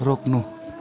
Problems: constant background noise